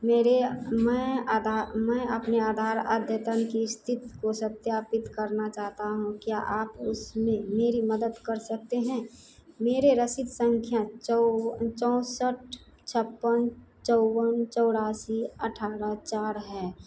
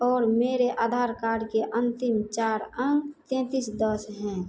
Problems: none marked